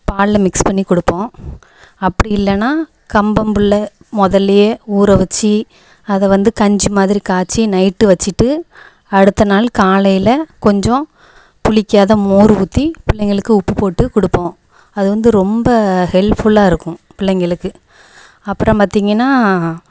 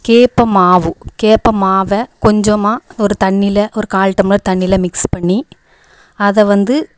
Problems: echo